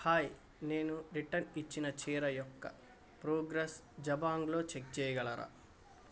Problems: none marked